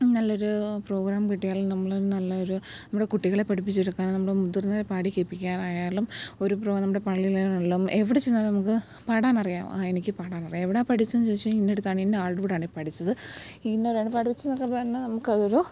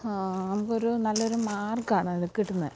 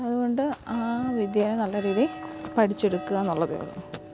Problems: background sounds at intervals, low volume